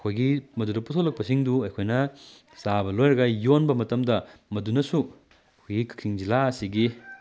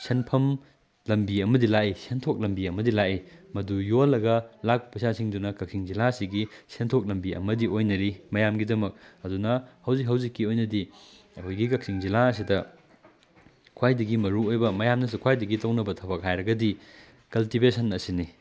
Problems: background sounds at intervals